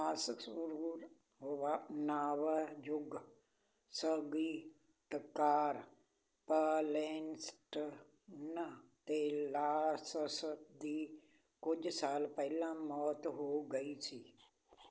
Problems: constant background noise